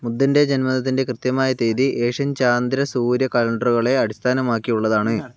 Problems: background sounds at intervals